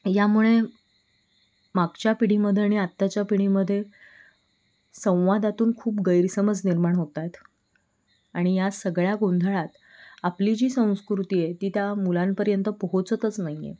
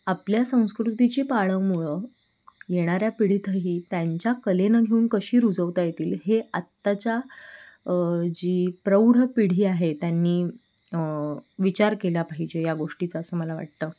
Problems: background sounds at intervals